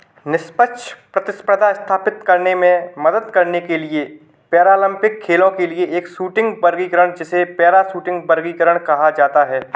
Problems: none marked